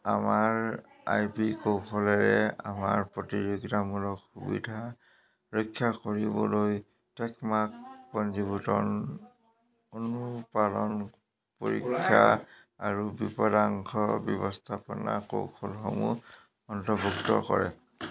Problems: constant background noise